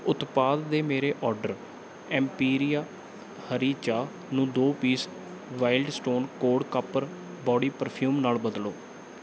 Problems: none marked